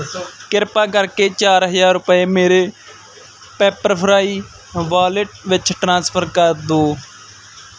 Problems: background conversations at intervals